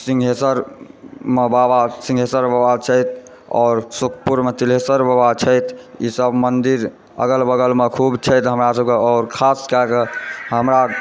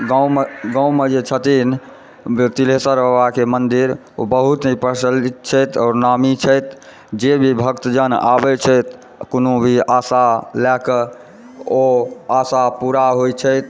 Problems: background sounds at intervals